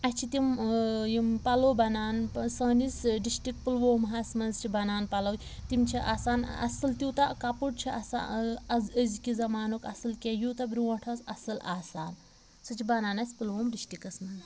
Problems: background sounds at intervals, background conversations at intervals